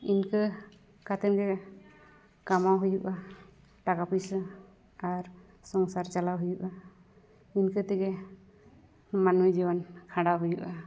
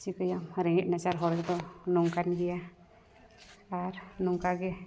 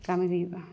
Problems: none marked